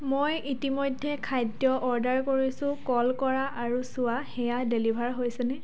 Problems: background conversations at intervals